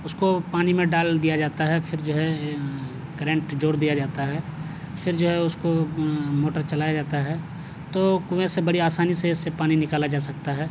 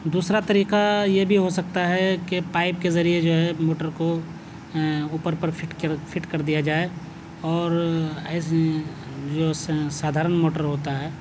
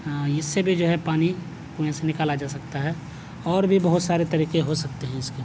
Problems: none marked